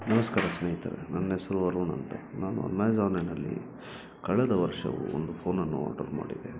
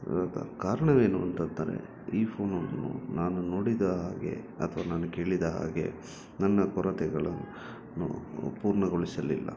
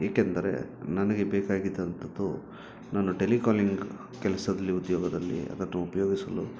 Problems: background sounds at intervals